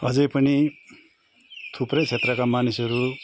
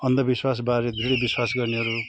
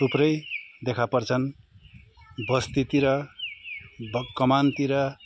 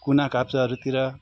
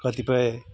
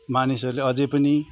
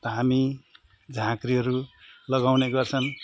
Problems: none marked